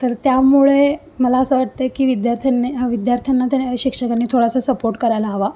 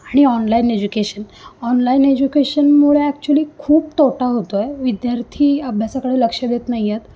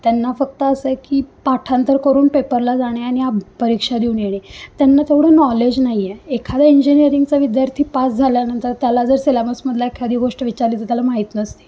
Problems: none marked